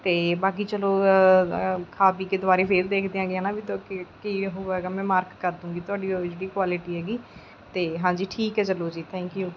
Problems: none marked